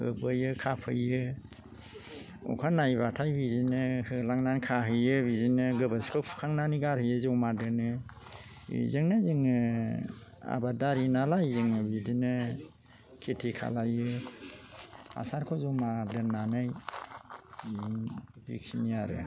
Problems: low volume